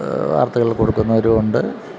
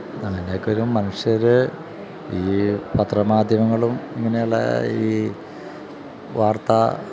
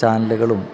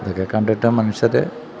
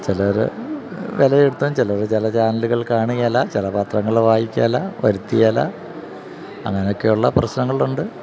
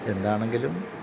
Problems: constant background noise